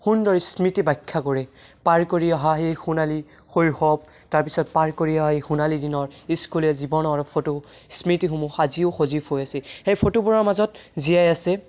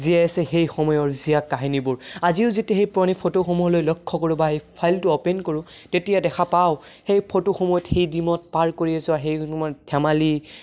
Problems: none marked